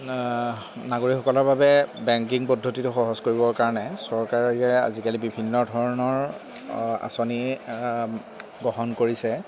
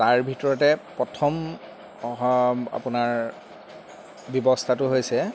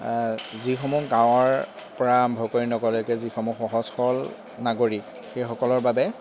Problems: constant background noise